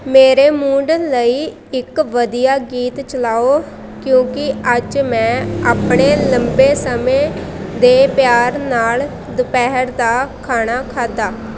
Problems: constant background noise